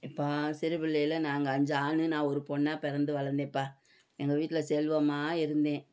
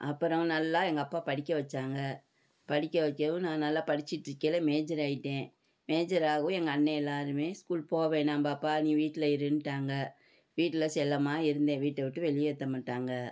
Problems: none marked